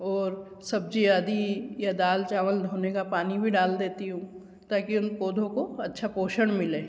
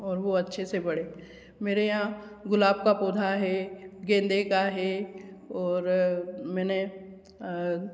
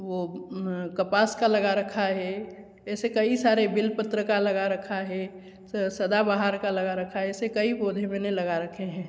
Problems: background sounds at intervals, echo